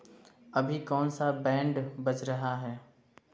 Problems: constant background noise